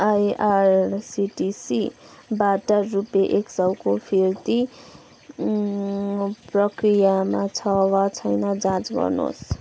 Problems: constant background noise